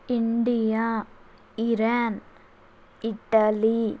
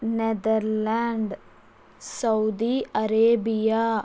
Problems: constant background noise